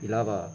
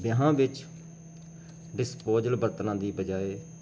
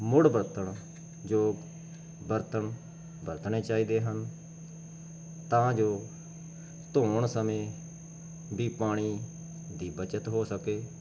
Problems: none marked